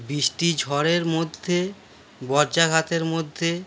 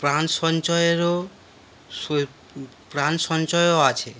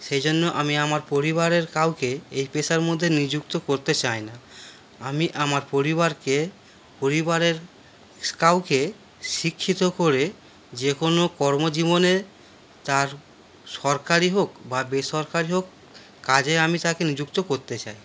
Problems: none marked